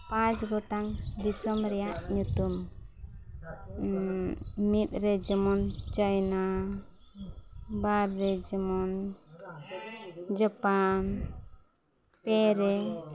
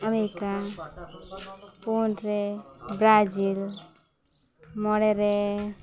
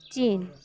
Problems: background sounds at intervals, continuous background conversations